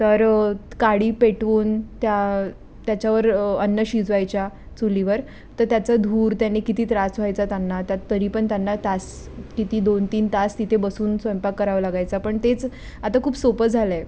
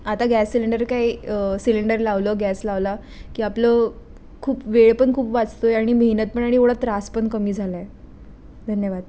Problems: constant background noise